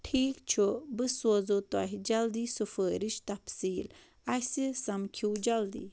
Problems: none marked